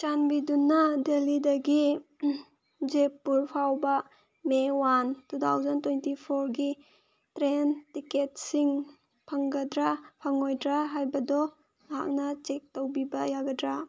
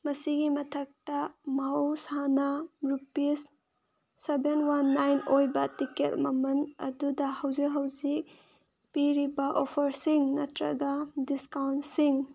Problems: none marked